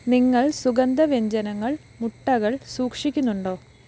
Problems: constant background noise